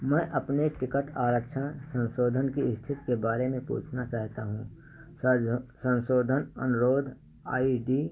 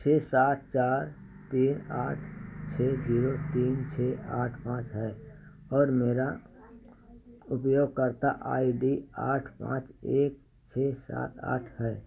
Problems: constant background noise